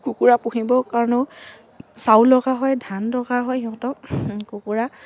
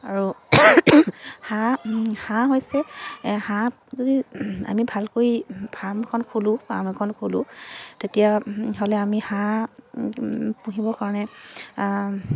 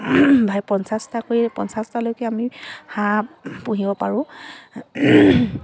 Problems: constant background noise, continuous background conversations